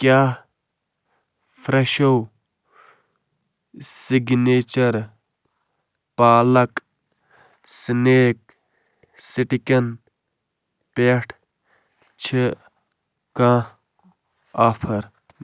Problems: constant background noise